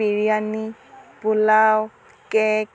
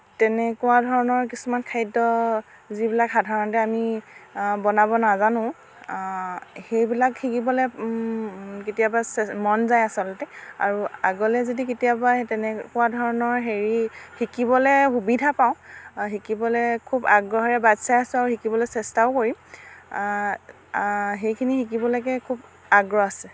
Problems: none marked